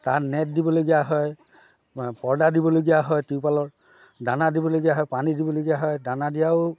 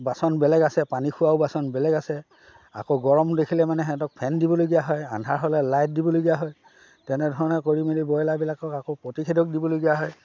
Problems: background sounds at intervals, background conversations at intervals